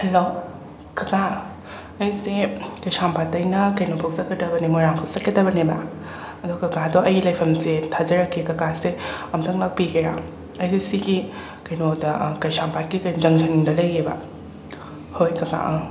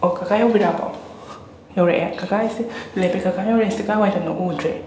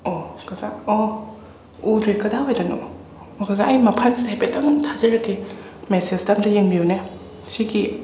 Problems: constant background noise, background conversations at intervals